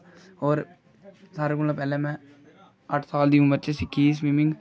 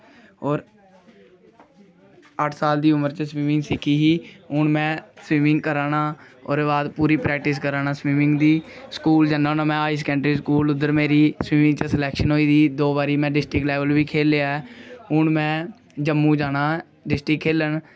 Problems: none marked